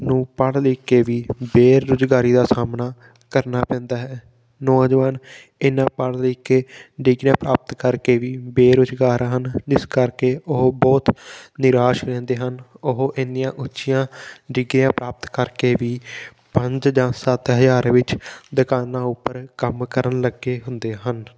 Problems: background sounds at intervals